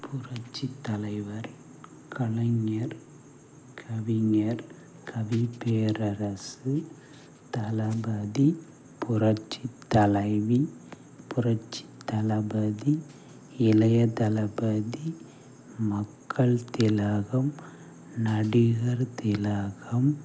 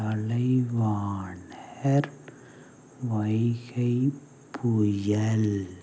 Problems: constant background noise